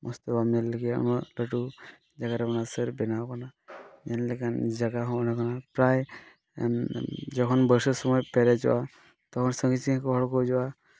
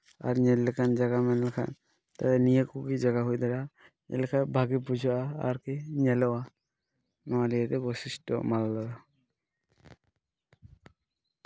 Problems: none marked